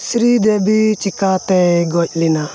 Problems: constant background noise